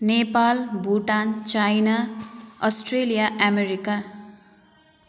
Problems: background sounds at intervals